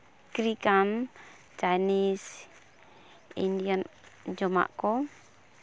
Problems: background sounds at intervals